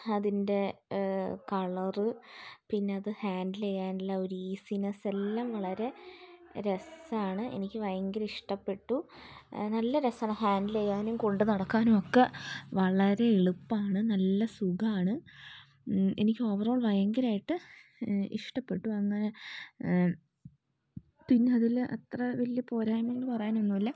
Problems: low volume